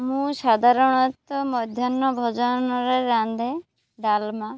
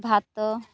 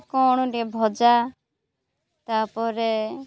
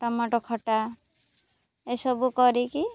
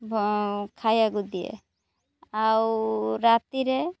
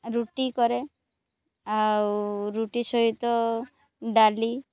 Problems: background sounds at intervals, background conversations at intervals